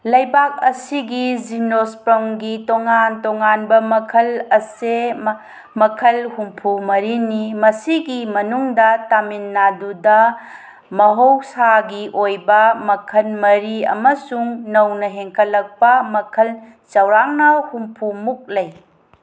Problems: none marked